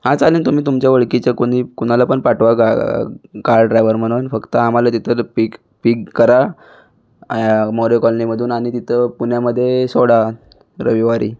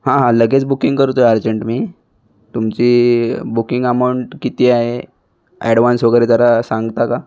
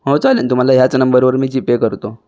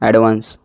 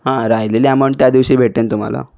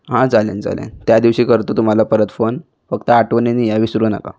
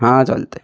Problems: constant background noise, background conversations at intervals